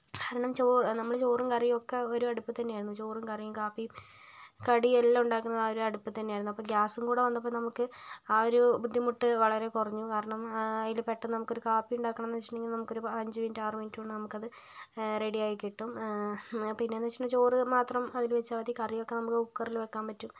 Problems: none marked